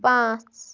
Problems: none marked